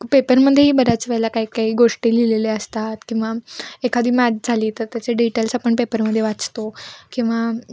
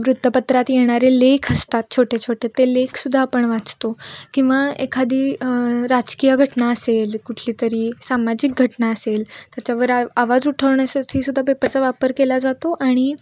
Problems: background sounds at intervals, background conversations at intervals